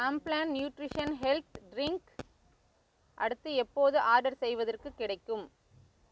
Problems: background sounds at intervals